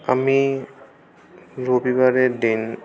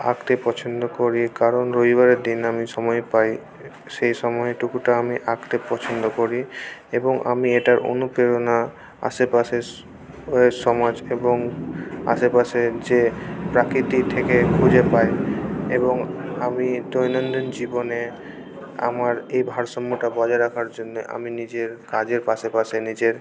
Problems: constant background noise, continuous background conversations